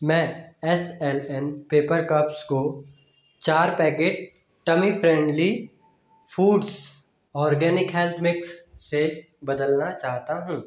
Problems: background sounds at intervals, echo